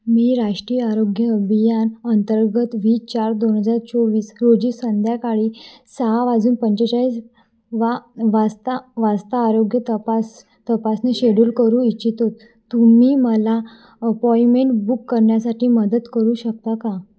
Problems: background sounds at intervals, background conversations at intervals, echo